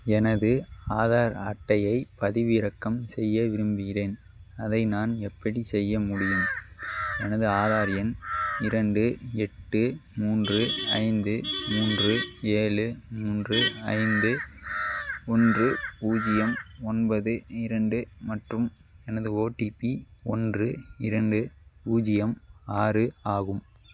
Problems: background sounds at intervals